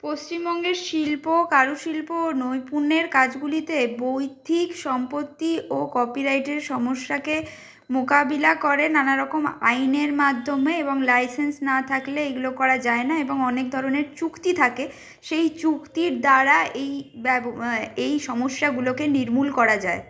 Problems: none marked